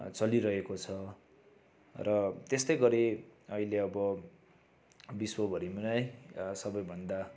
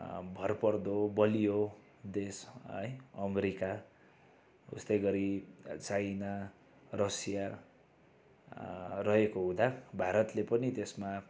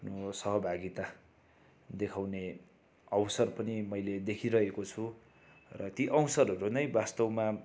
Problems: background sounds at intervals